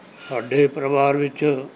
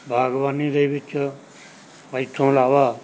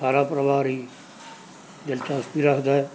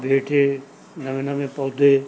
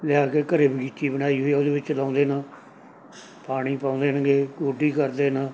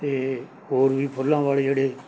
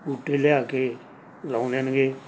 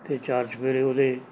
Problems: background sounds at intervals